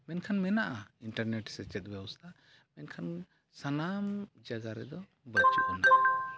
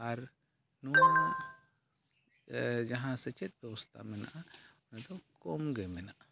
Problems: background sounds at intervals, low volume